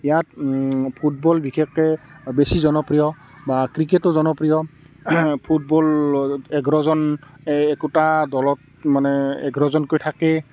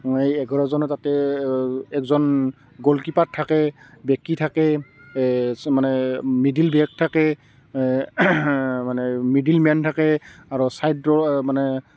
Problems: constant background noise